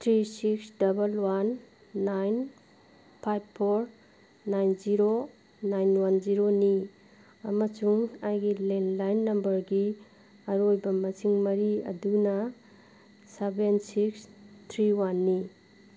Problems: none marked